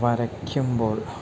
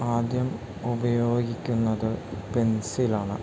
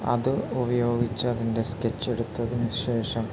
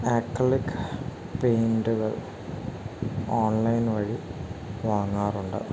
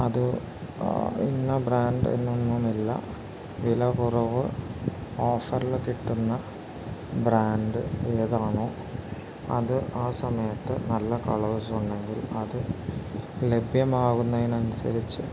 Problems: constant background noise